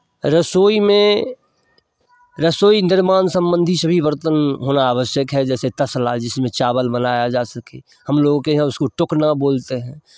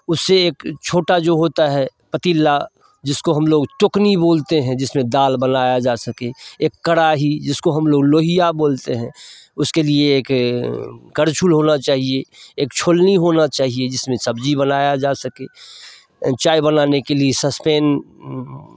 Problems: background sounds at intervals